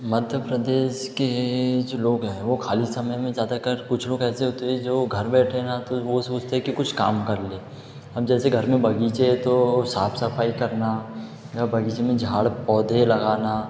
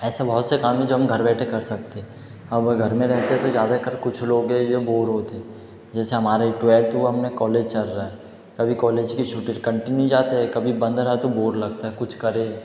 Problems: none marked